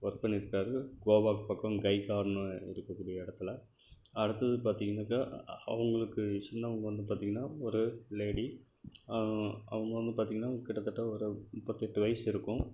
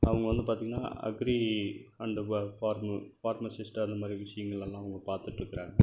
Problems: background sounds at intervals, low volume